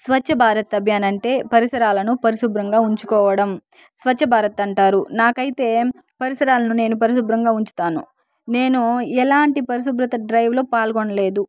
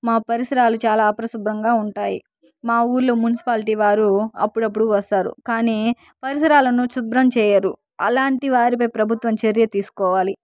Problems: background sounds at intervals, background conversations at intervals